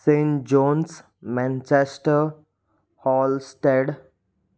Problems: none marked